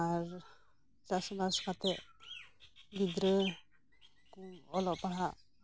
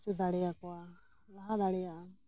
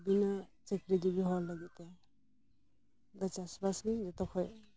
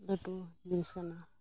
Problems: background sounds at intervals